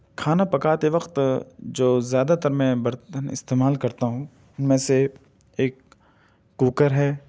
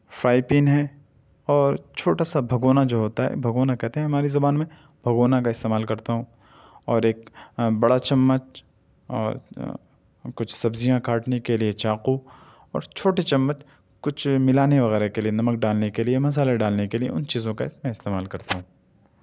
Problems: none marked